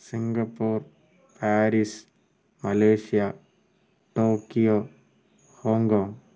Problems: background sounds at intervals, low volume